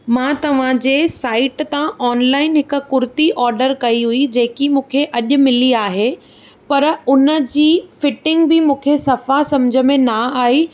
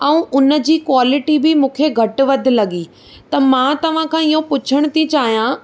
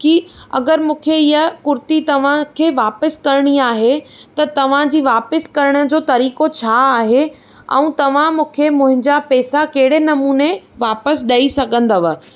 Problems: none marked